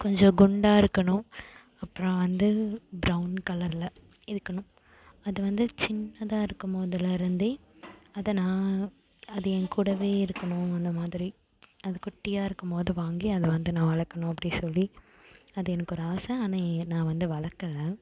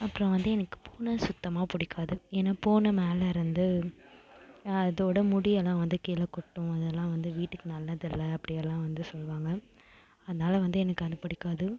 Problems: background sounds at intervals